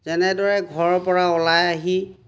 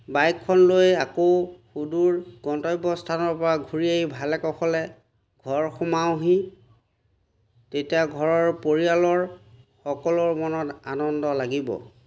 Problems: none marked